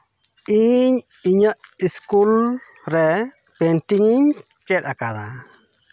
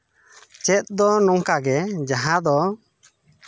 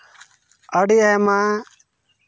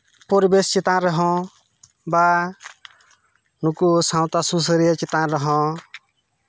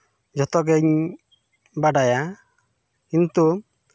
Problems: none marked